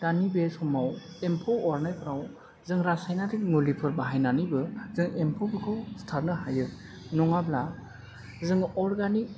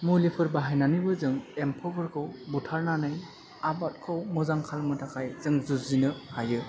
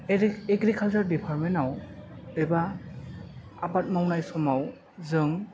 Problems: constant background noise, background conversations at intervals